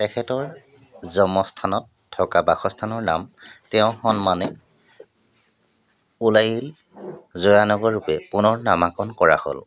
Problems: background sounds at intervals